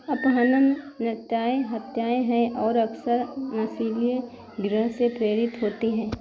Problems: constant background noise, low volume